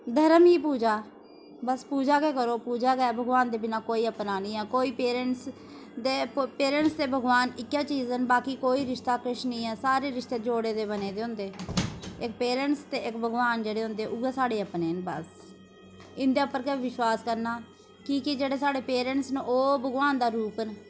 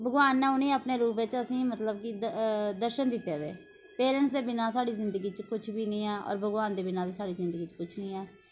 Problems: constant background noise